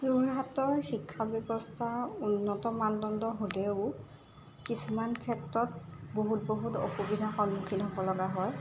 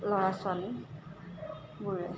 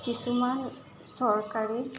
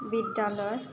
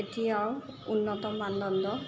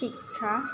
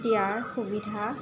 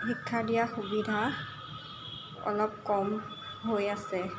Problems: constant background noise